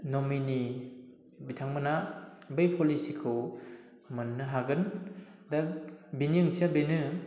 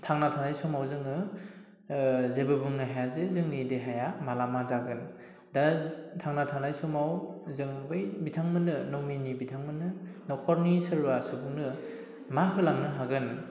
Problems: none marked